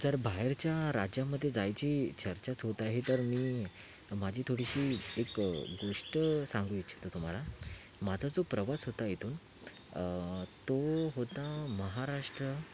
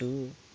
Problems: constant background noise